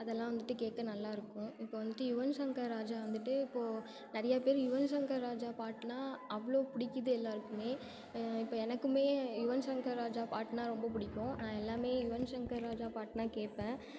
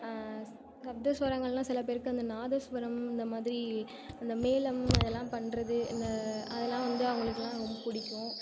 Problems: continuous background conversations